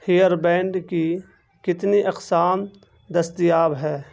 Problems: none marked